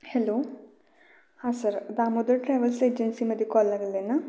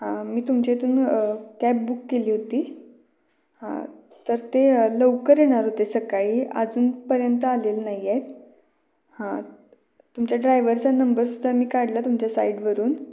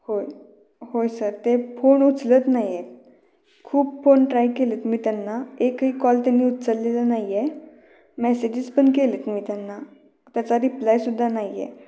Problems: none marked